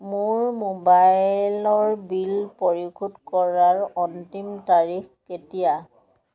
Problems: background conversations at intervals